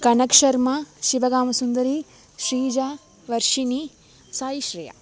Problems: background sounds at intervals